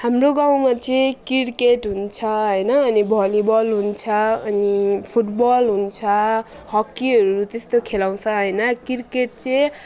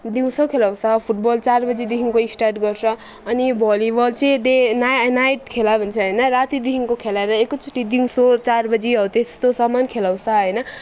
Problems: background sounds at intervals